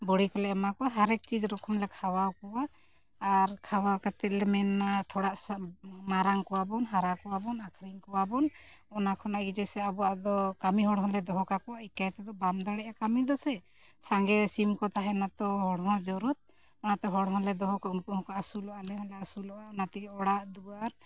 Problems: none marked